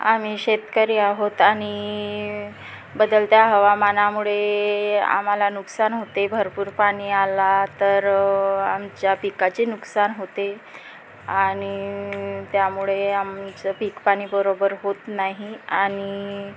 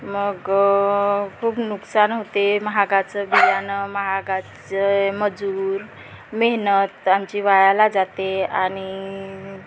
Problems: constant background noise